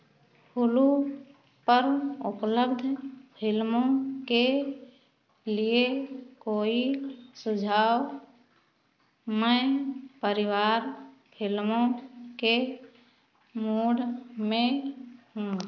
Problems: constant background noise